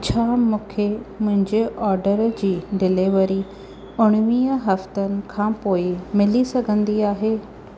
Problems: constant background noise